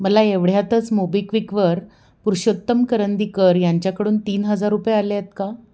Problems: none marked